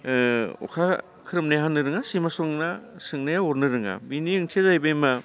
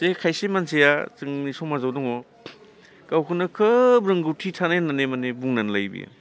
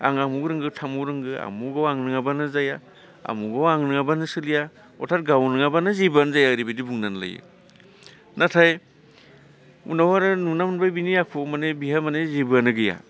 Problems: constant background noise